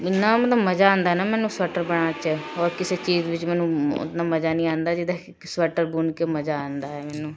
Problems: constant background noise